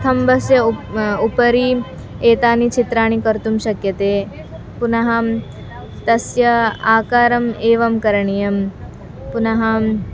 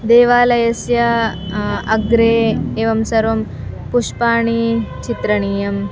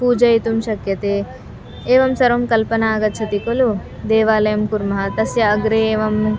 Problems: constant background noise, continuous background conversations